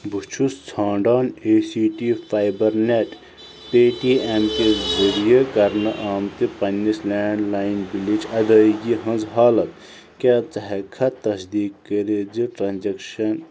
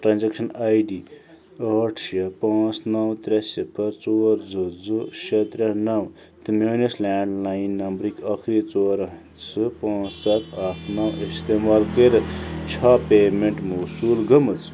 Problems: constant background noise